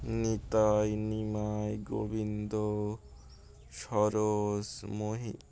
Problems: constant background noise